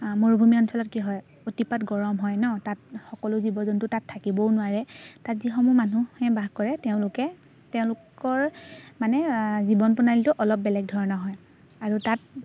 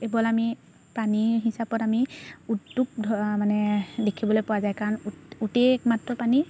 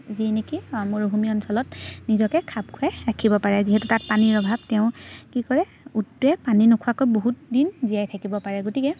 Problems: constant background noise